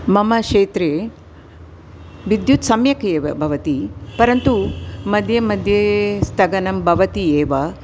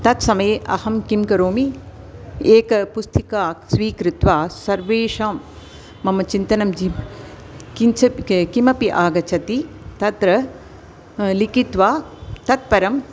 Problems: constant background noise